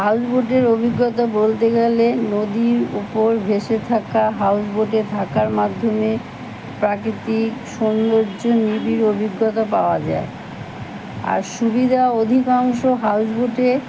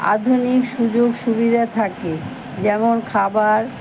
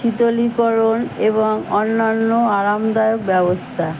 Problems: constant background noise, background conversations at intervals